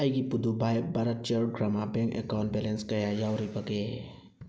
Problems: none marked